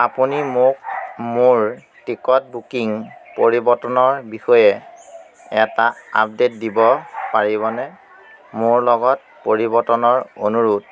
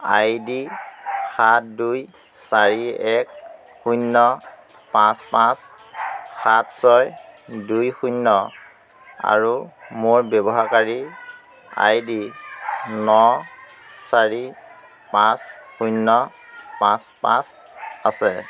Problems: constant background noise, background conversations at intervals